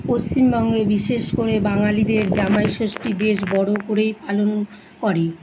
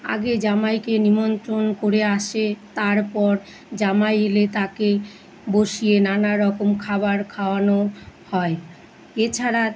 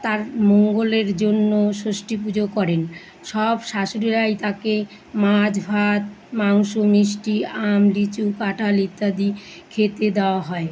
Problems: constant background noise, continuous background conversations